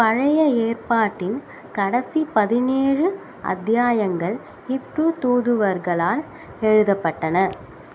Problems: constant background noise